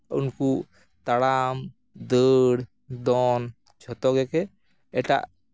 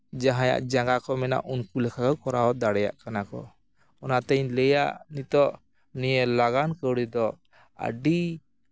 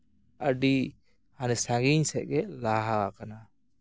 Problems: background sounds at intervals